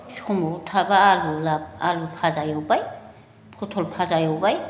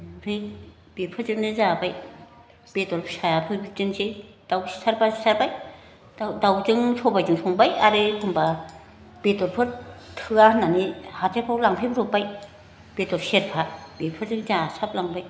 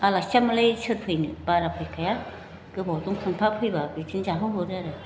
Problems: constant background noise